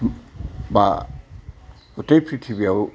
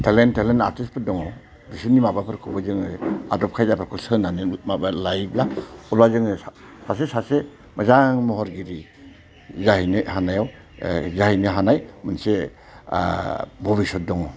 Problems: constant background noise